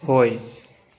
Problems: none marked